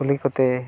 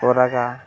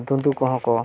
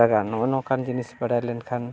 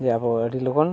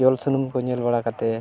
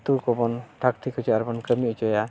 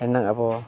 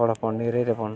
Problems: none marked